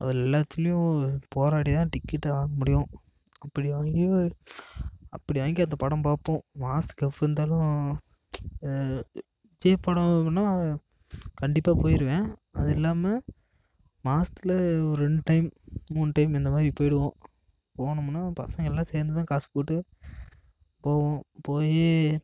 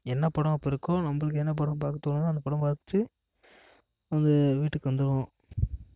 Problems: none marked